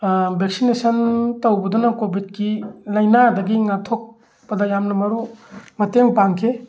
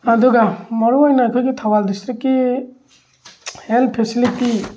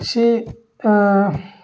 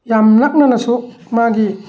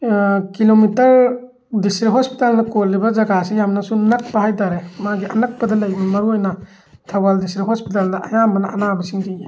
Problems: background sounds at intervals